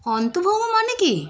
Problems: continuous background conversations